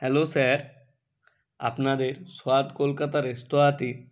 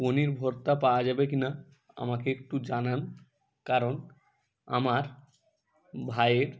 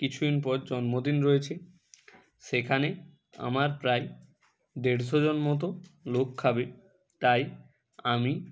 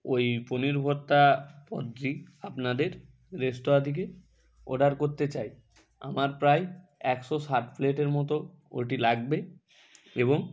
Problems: constant background noise